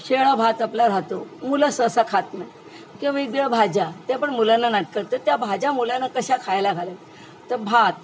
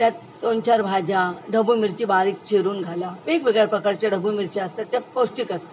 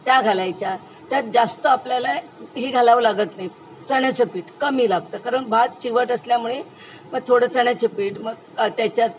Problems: constant background noise, background conversations at intervals